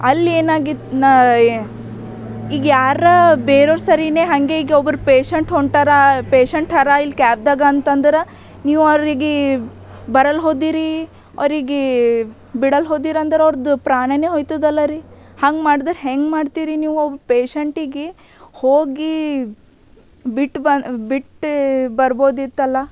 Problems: none marked